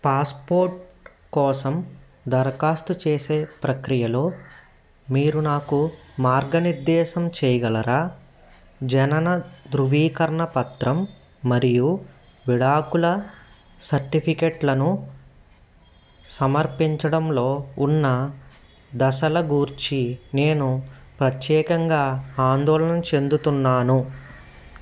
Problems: background sounds at intervals